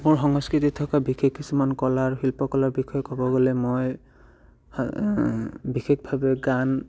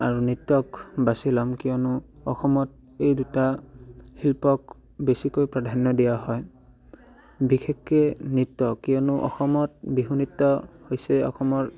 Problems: background sounds at intervals